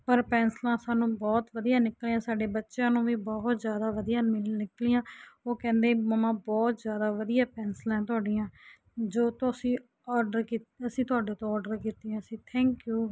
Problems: none marked